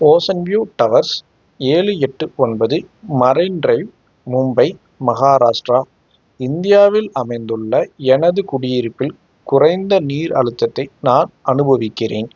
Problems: background sounds at intervals